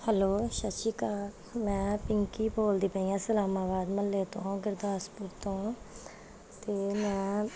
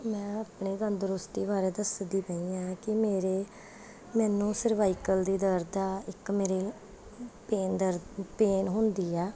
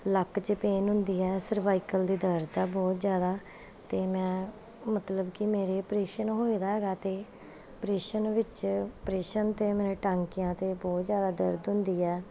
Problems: background sounds at intervals